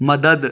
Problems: none marked